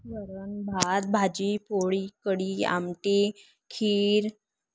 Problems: none marked